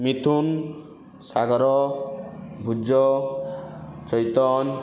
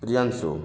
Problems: background sounds at intervals, continuous background conversations